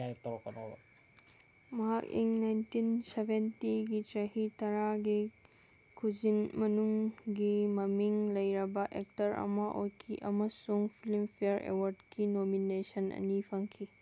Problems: constant background noise